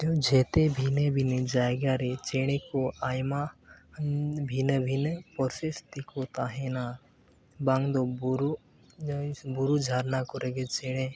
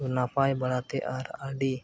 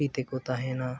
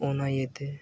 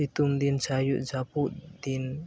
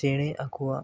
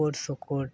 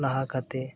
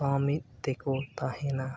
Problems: background sounds at intervals